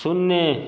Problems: none marked